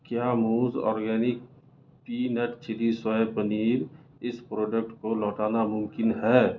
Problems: constant background noise, low volume